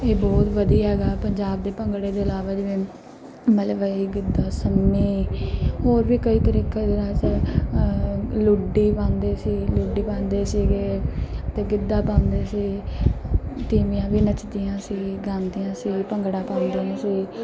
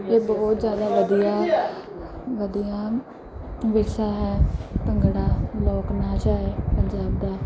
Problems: background sounds at intervals, background conversations at intervals